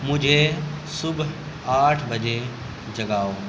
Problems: constant background noise